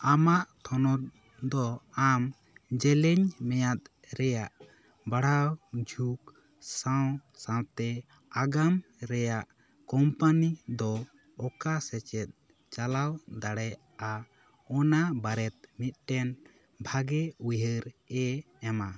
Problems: background sounds at intervals